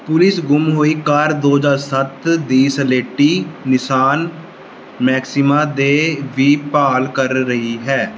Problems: none marked